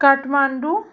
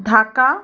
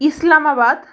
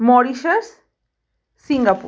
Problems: background sounds at intervals